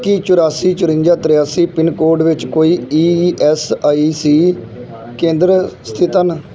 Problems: continuous background conversations